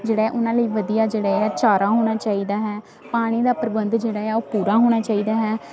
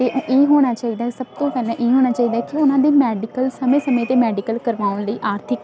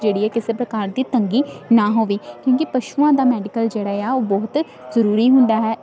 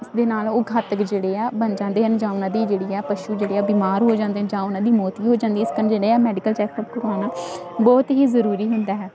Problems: constant background noise